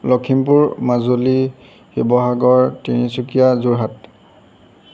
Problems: background sounds at intervals